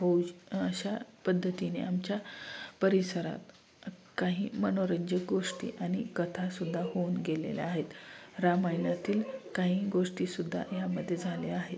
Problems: none marked